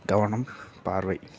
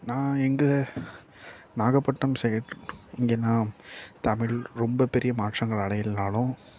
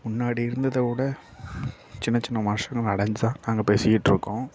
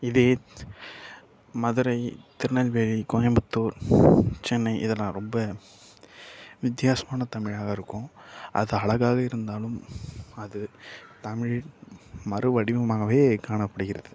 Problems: background sounds at intervals, low volume